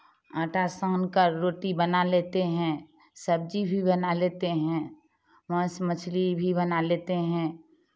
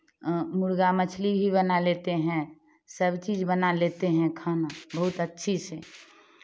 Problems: none marked